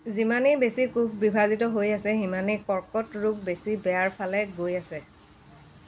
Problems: constant background noise, background conversations at intervals